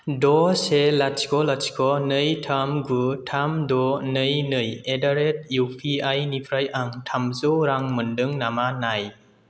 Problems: none marked